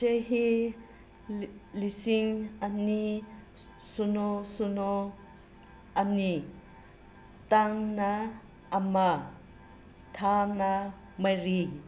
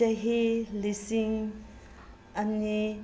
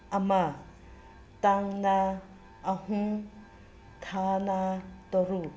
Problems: constant background noise